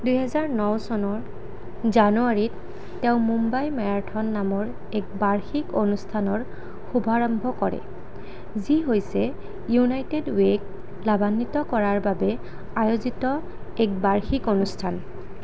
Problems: none marked